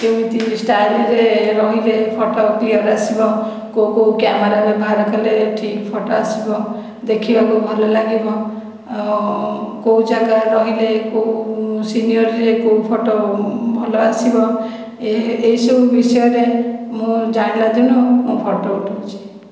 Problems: background sounds at intervals